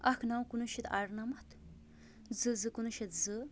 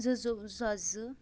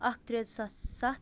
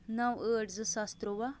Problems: constant background noise